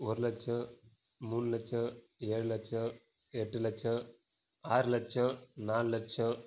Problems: low volume